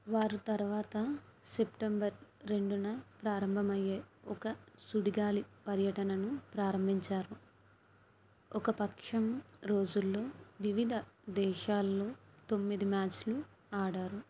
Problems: low volume